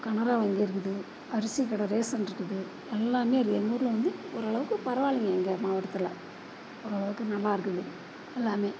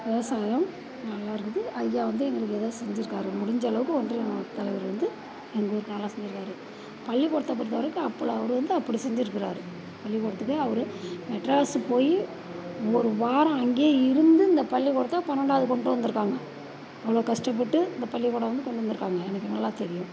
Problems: constant background noise